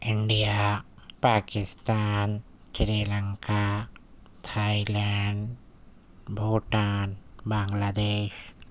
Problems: none marked